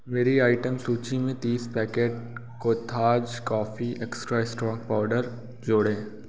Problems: constant background noise